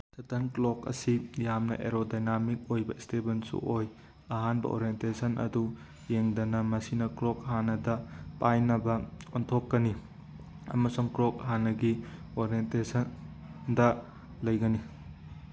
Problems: none marked